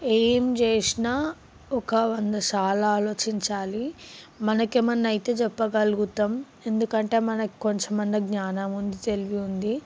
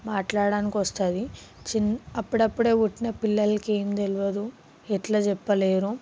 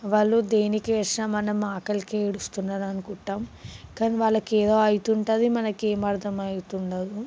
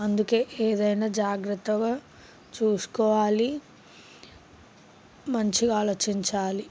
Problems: background sounds at intervals